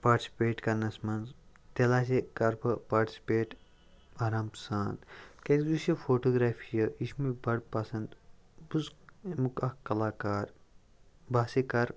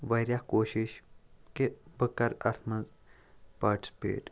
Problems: none marked